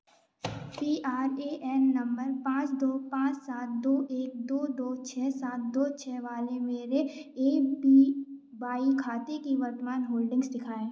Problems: background sounds at intervals